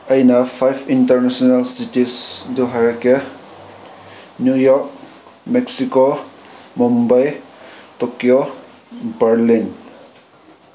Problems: background sounds at intervals